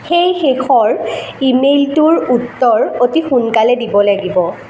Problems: none marked